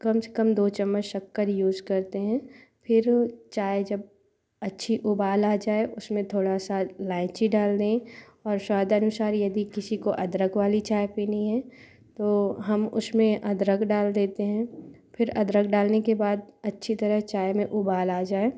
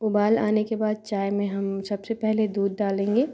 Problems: none marked